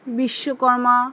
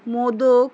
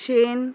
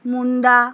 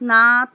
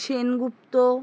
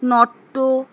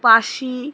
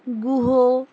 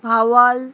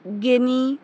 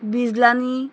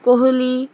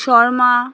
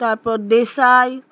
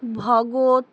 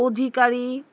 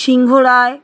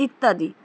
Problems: none marked